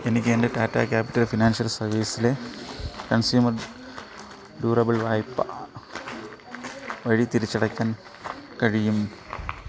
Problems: constant background noise